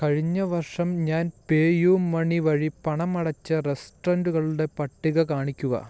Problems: background sounds at intervals